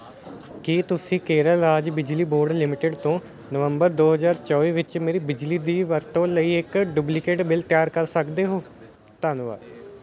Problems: continuous background conversations